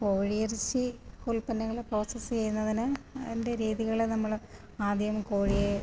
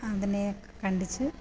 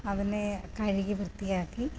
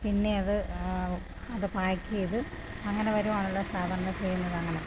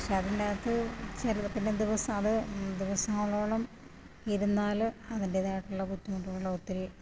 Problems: low volume